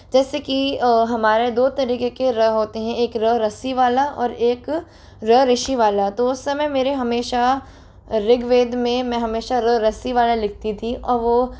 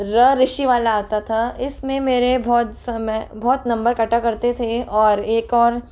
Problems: constant background noise